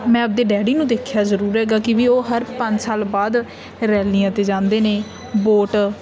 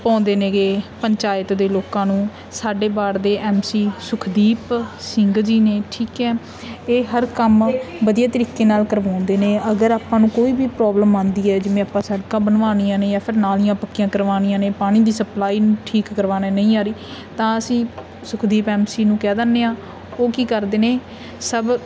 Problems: none marked